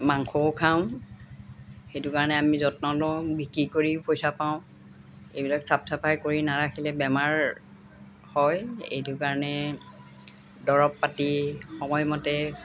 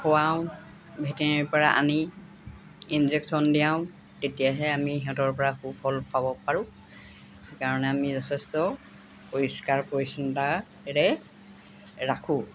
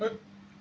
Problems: none marked